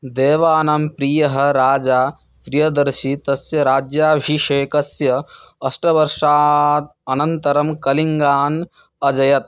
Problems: constant background noise